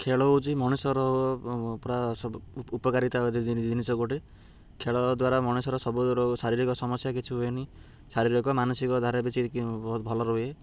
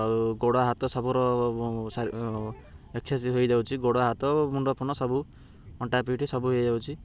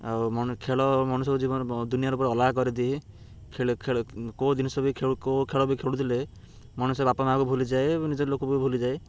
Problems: none marked